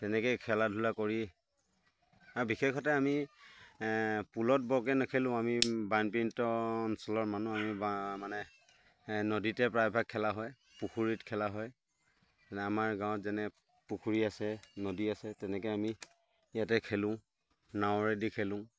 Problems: background sounds at intervals